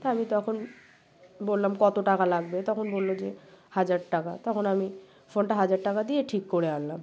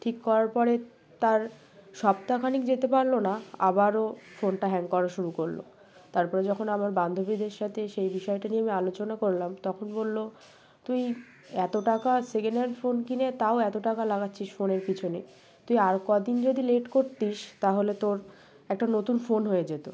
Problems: background sounds at intervals